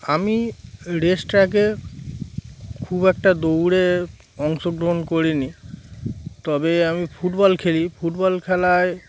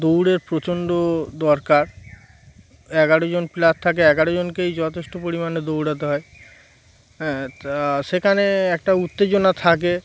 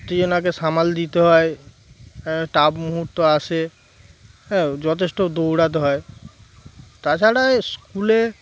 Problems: constant background noise